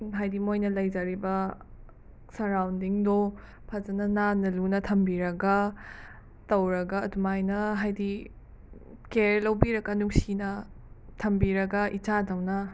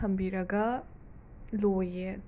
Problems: background sounds at intervals